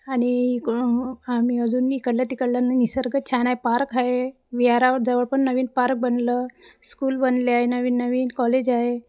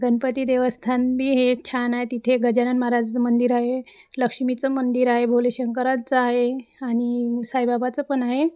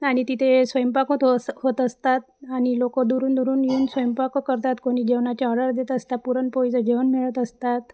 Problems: background sounds at intervals, background conversations at intervals